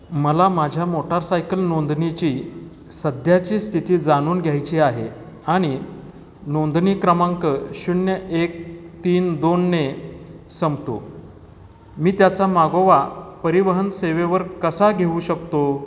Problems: constant background noise